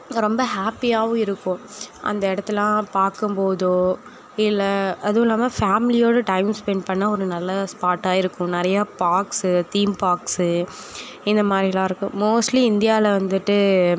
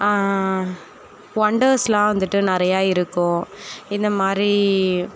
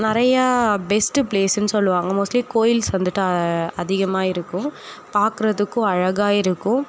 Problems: none marked